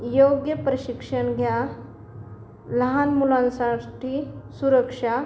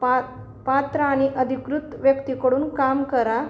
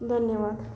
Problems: none marked